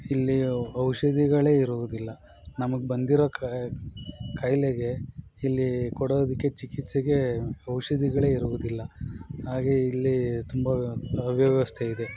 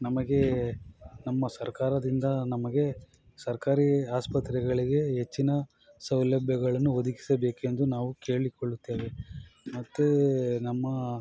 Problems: background sounds at intervals